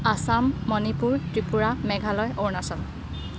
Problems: background sounds at intervals